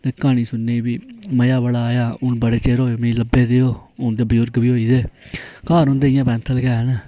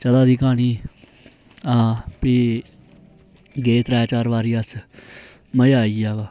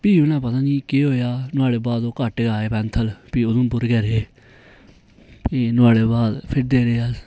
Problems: none marked